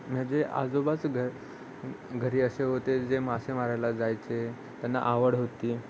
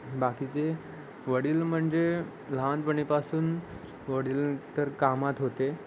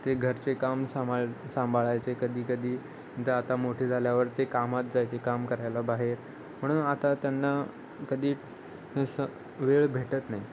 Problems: constant background noise, background conversations at intervals